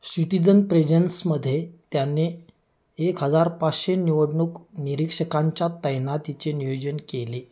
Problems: none marked